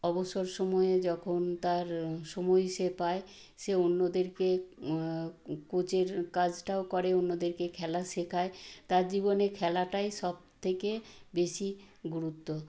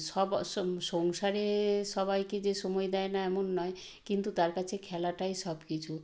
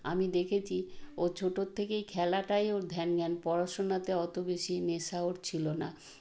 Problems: none marked